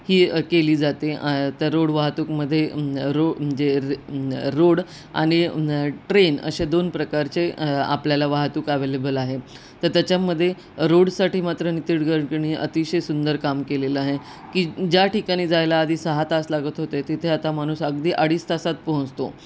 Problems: constant background noise